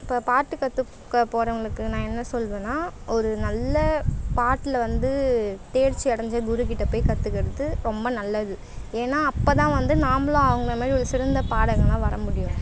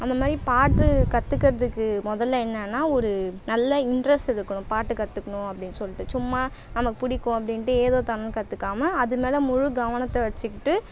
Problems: none marked